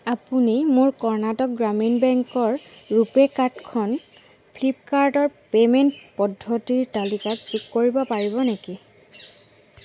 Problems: constant background noise